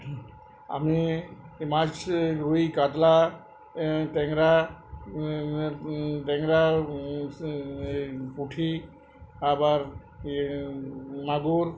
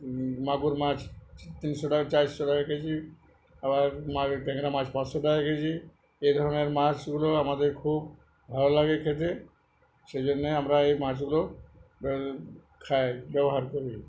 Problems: background conversations at intervals